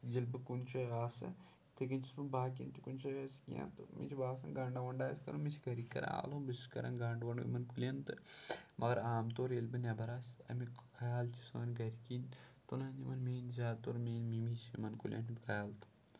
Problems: none marked